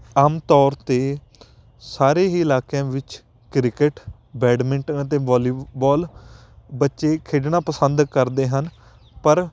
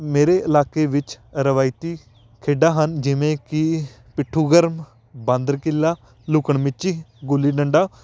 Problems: none marked